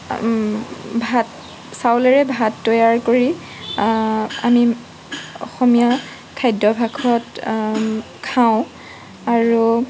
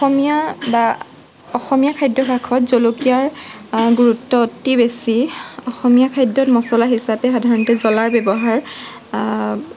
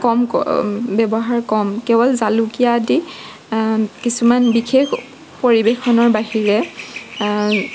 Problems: background sounds at intervals